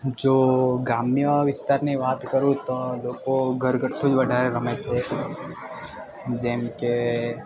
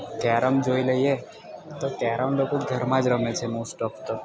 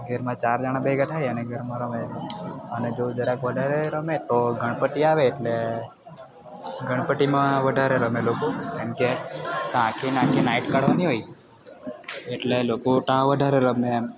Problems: constant background noise